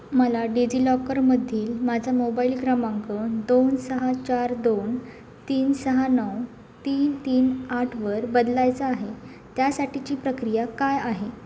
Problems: none marked